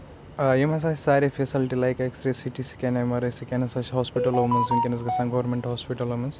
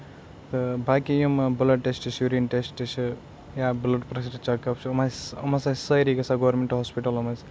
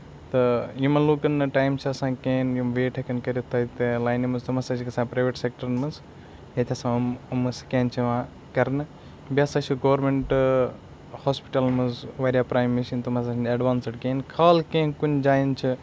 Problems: constant background noise